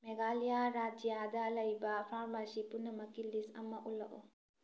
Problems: none marked